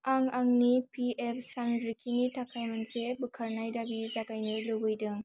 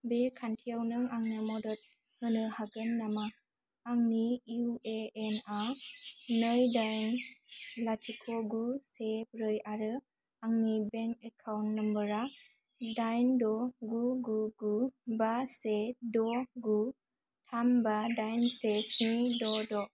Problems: low volume